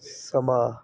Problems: none marked